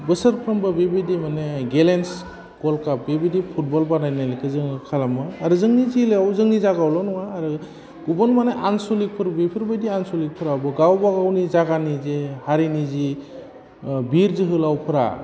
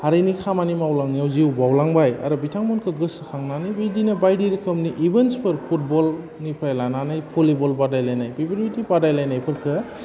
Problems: constant background noise